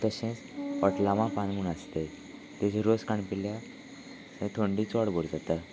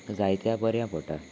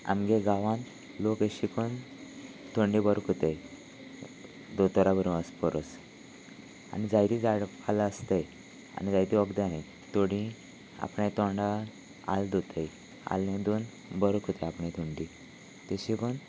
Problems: none marked